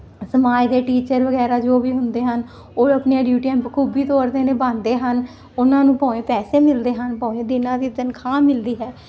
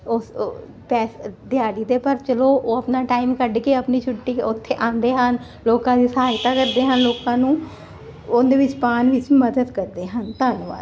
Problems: none marked